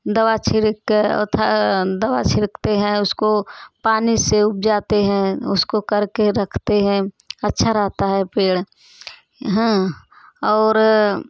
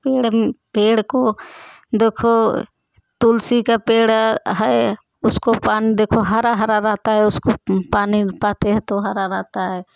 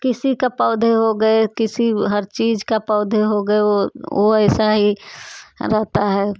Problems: none marked